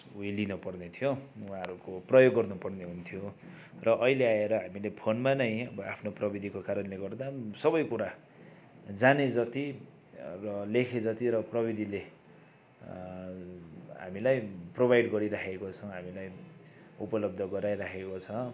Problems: none marked